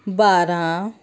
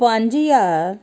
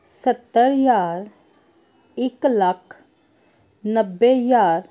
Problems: none marked